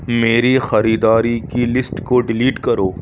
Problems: none marked